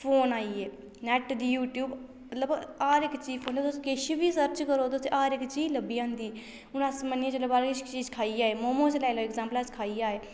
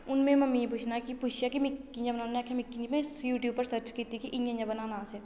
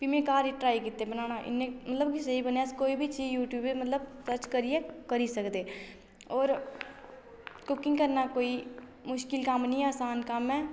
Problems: none marked